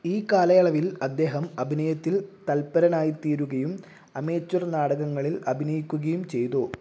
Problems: low volume